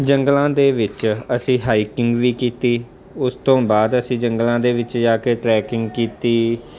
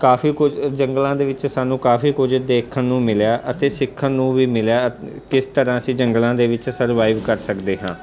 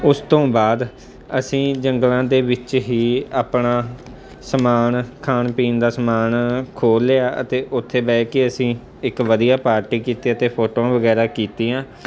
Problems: constant background noise